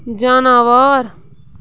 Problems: background sounds at intervals